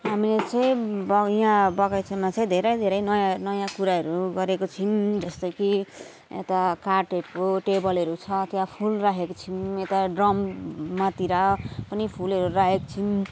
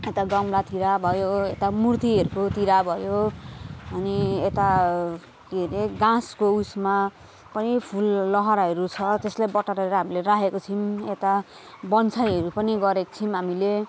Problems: constant background noise